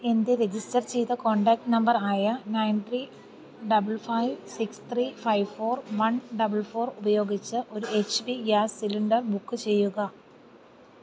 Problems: low volume